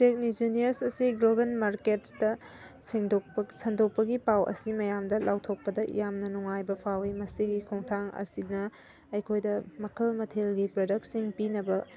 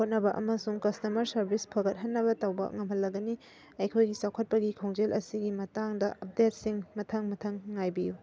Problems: background sounds at intervals